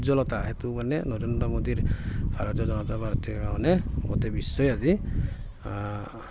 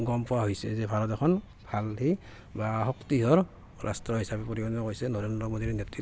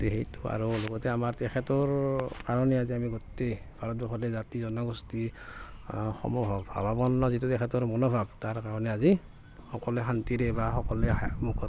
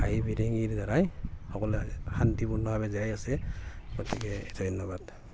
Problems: constant background noise, background conversations at intervals